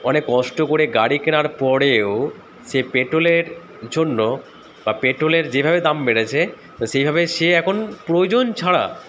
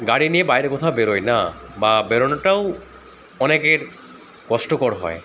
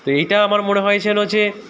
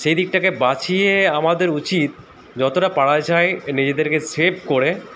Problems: constant background noise